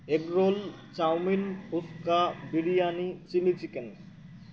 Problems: constant background noise